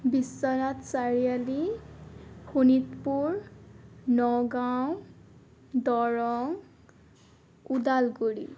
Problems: none marked